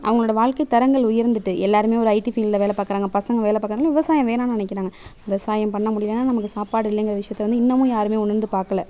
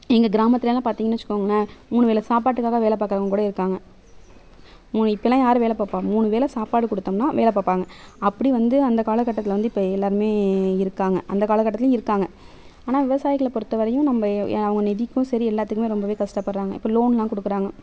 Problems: none marked